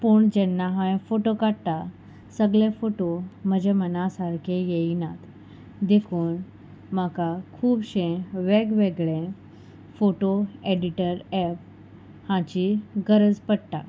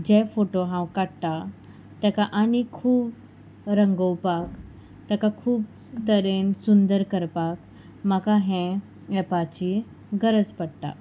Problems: constant background noise, background conversations at intervals